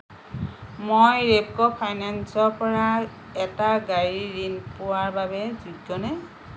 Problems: constant background noise